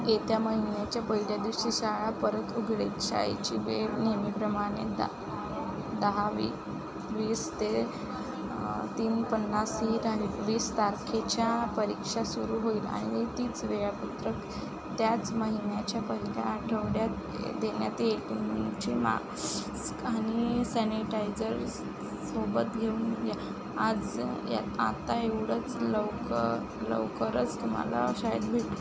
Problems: constant background noise, background conversations at intervals